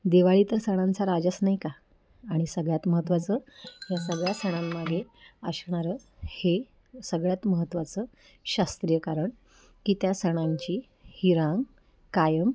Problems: background sounds at intervals, low volume